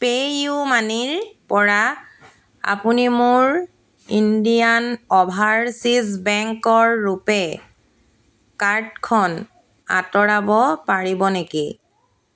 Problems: constant background noise